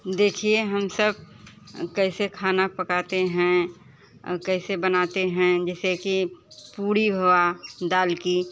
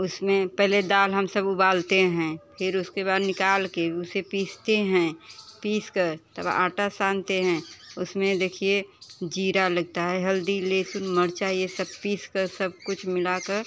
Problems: constant background noise, background conversations at intervals